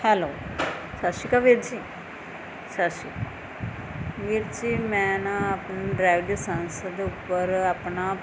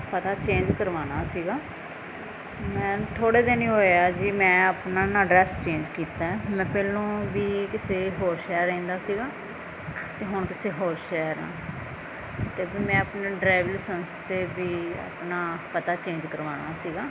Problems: none marked